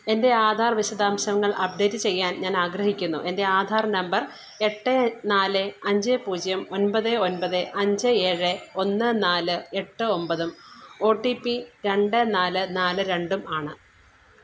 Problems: low volume